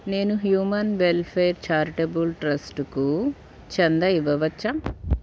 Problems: background sounds at intervals